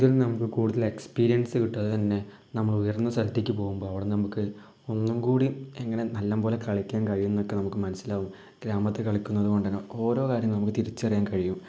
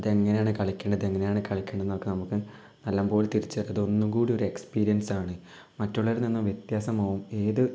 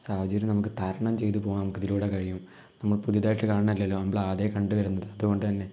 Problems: none marked